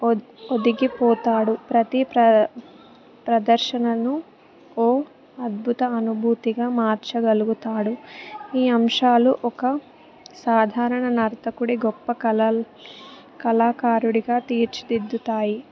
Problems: background sounds at intervals, background conversations at intervals